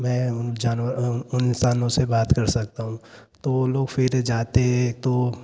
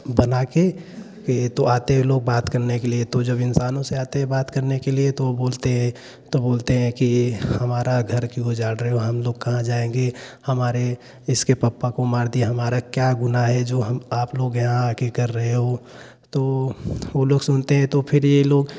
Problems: background sounds at intervals